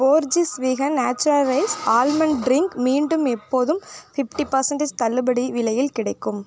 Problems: background sounds at intervals